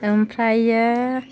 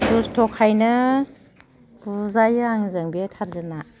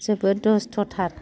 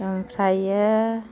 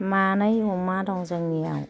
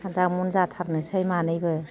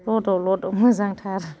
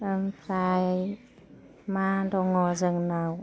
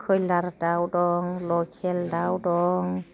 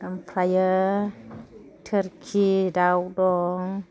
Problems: background conversations at intervals